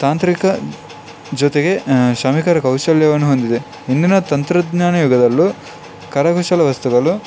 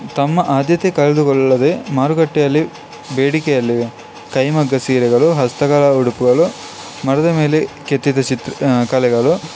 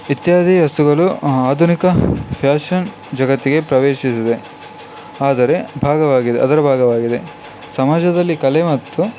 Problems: background sounds at intervals